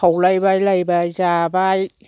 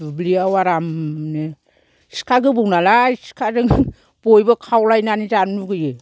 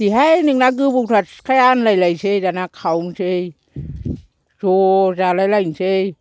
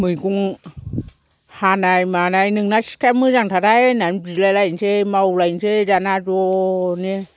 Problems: none marked